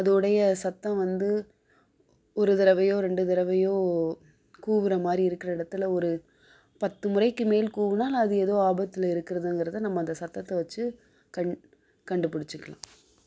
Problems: low volume